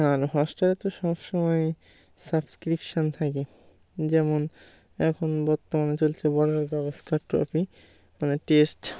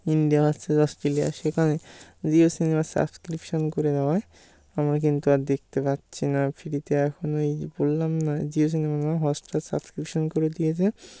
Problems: constant background noise